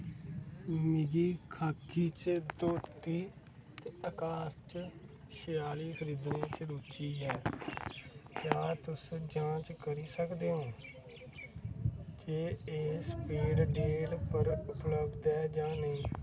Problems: constant background noise, low volume